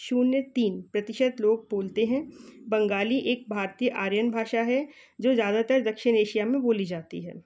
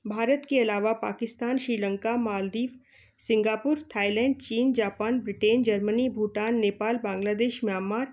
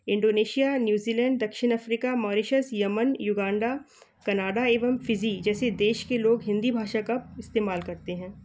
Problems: background sounds at intervals